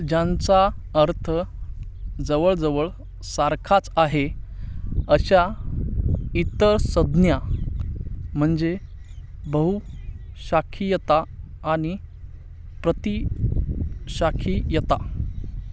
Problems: none marked